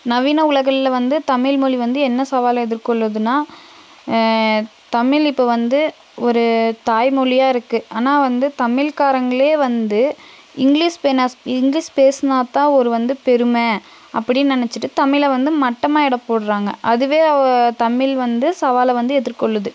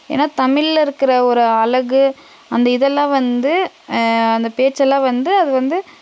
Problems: constant background noise